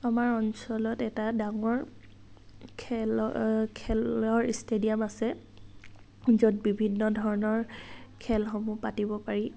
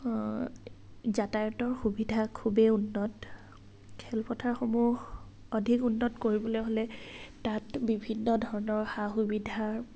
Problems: none marked